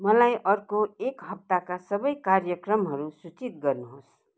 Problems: constant background noise